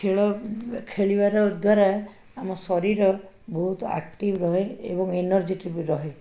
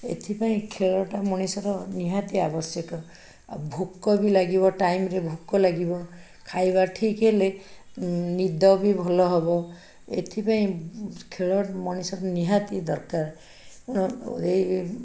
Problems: background conversations at intervals